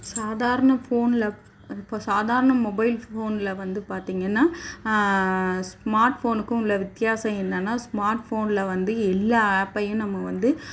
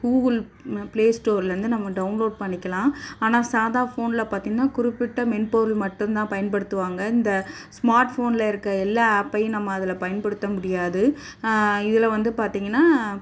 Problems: background sounds at intervals